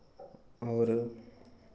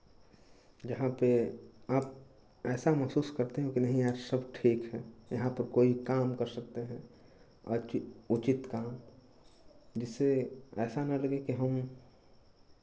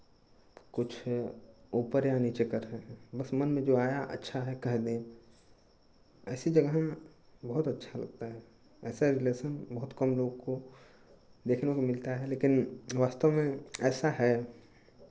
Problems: none marked